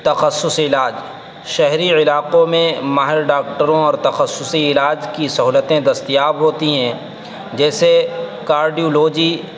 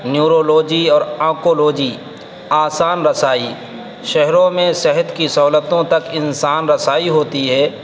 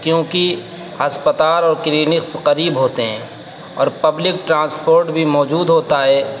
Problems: constant background noise, background conversations at intervals